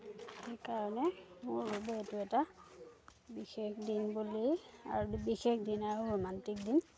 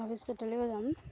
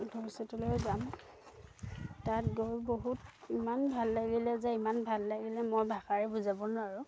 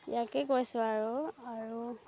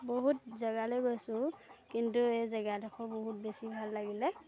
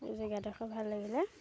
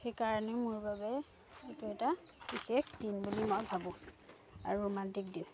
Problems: background conversations at intervals